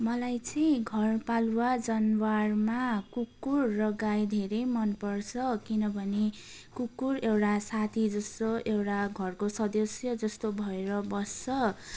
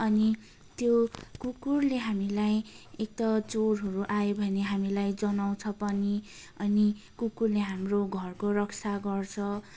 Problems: none marked